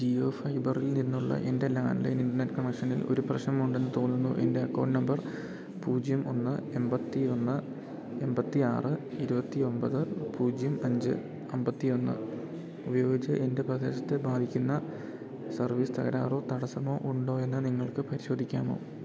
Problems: none marked